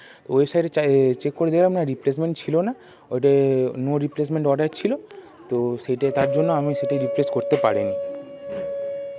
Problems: constant background noise, continuous background conversations